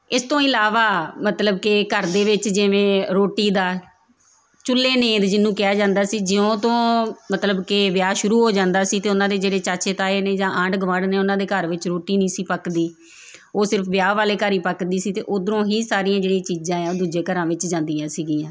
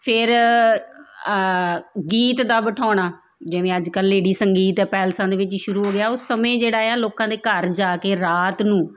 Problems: background sounds at intervals